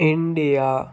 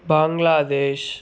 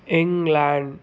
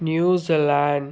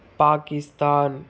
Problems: constant background noise